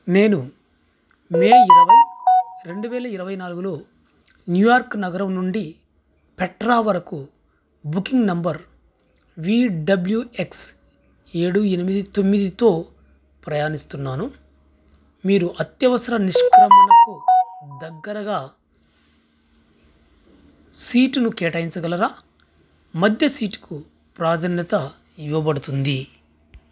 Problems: background sounds at intervals